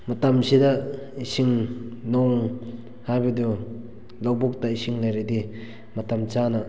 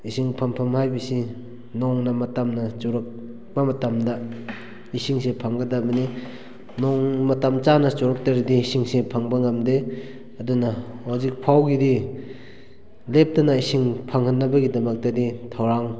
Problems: background sounds at intervals